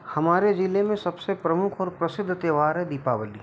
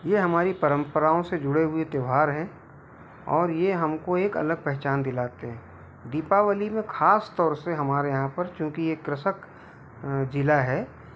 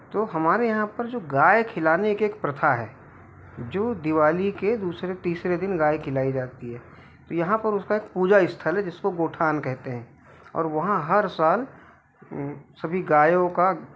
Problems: constant background noise